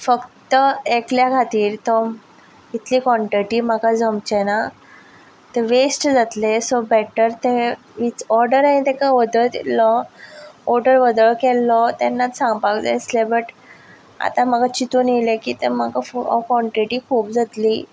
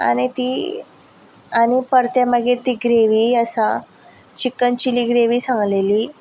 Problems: background sounds at intervals